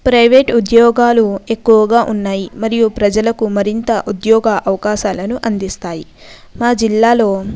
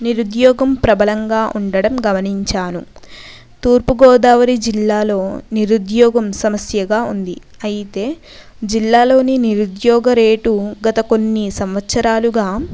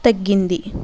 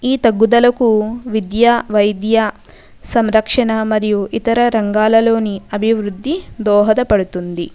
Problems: background conversations at intervals